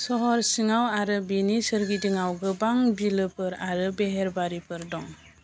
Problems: constant background noise